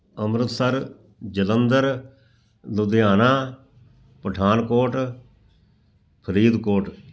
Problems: none marked